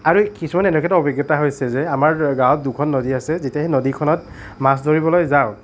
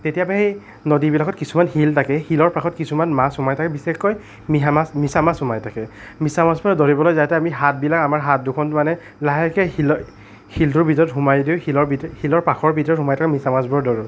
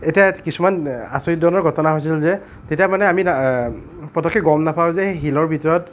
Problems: none marked